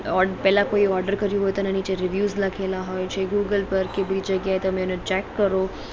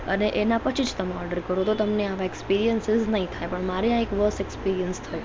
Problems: background sounds at intervals, background conversations at intervals